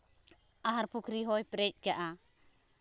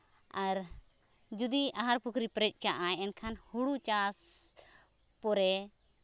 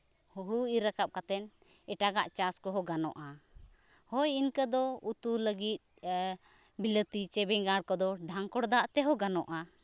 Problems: none marked